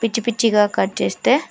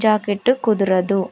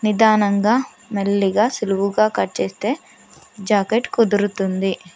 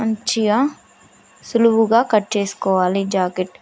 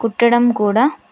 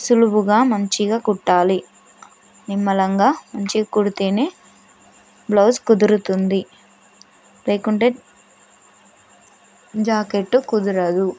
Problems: constant background noise